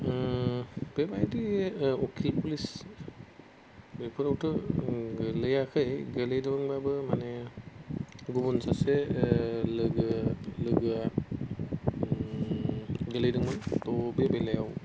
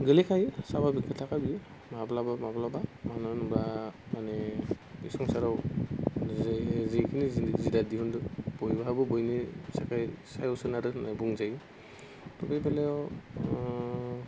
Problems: constant background noise